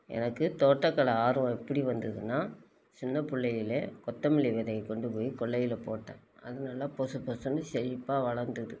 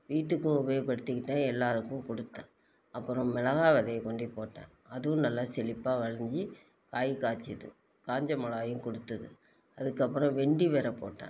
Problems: none marked